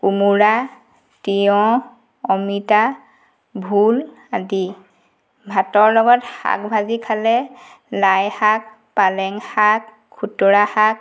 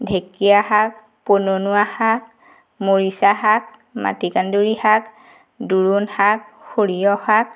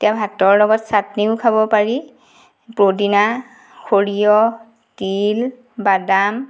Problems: background sounds at intervals